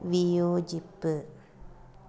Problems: none marked